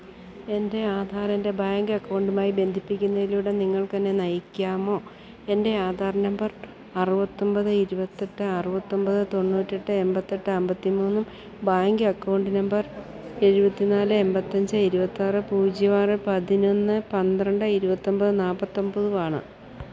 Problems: none marked